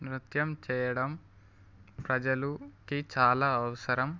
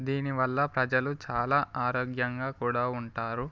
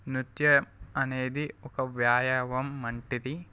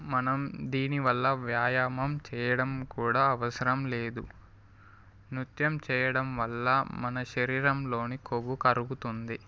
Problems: background sounds at intervals